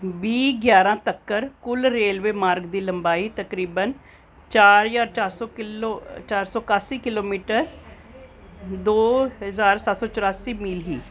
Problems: none marked